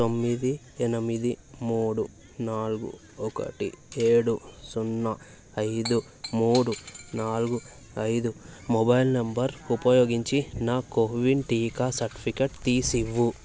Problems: none marked